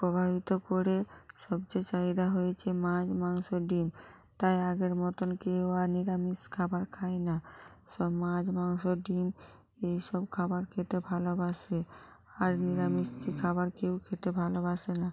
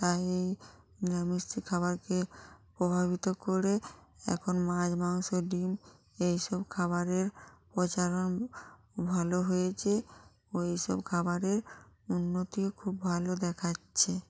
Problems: constant background noise